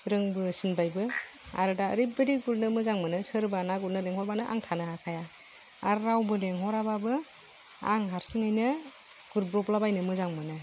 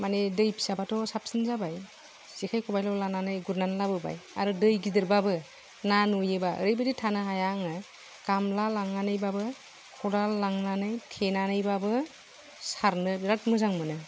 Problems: none marked